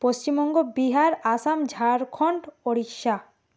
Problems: constant background noise